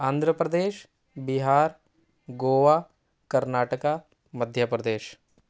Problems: none marked